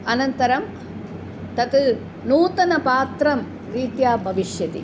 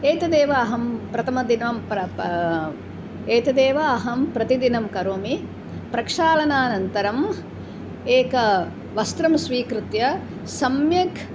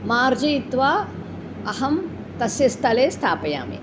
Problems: background conversations at intervals